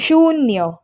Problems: background sounds at intervals